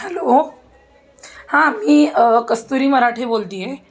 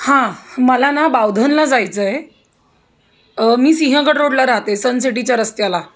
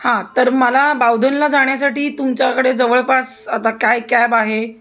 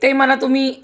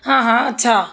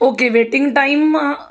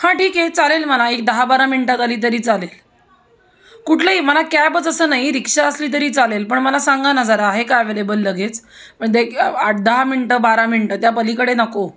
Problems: constant background noise